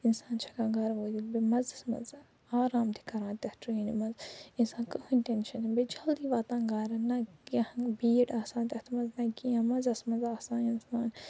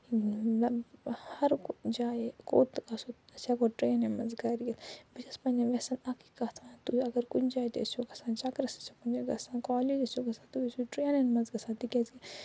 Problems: low volume